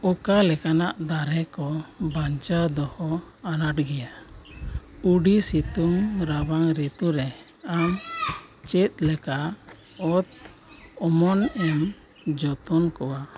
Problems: none marked